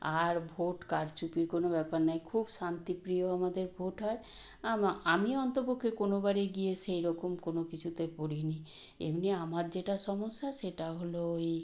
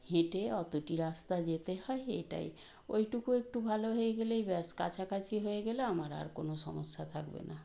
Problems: constant background noise